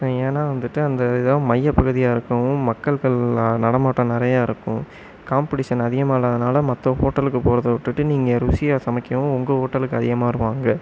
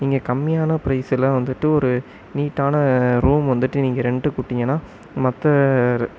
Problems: none marked